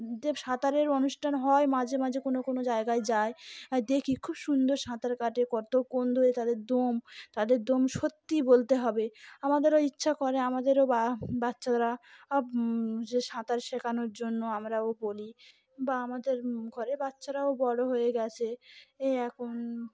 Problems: constant background noise